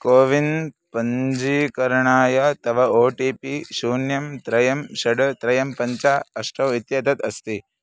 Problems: background sounds at intervals